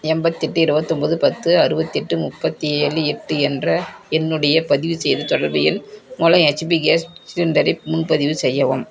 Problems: none marked